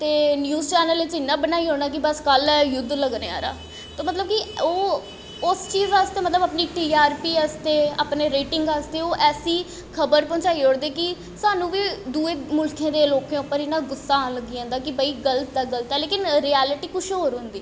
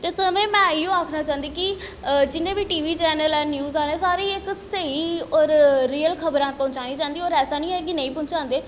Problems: constant background noise, echo